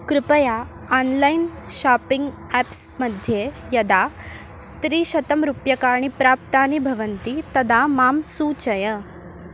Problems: constant background noise